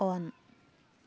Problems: none marked